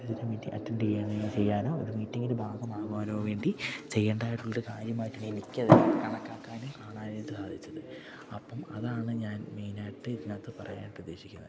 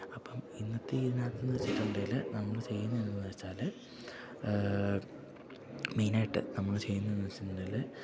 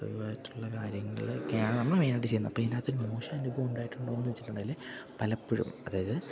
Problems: low volume